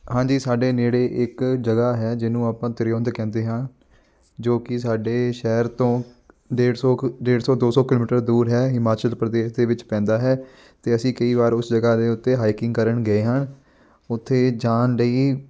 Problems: none marked